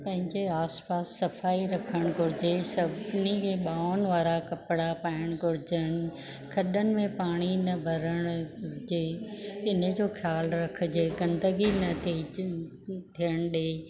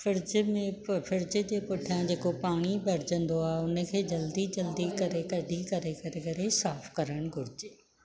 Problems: none marked